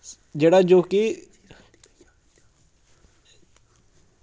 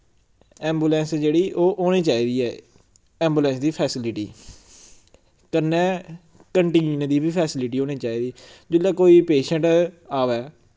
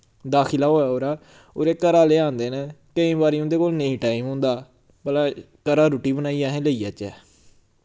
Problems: background sounds at intervals